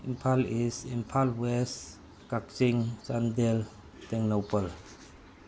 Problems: constant background noise